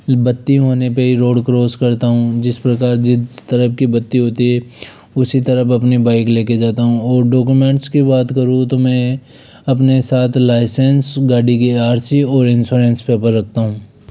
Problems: none marked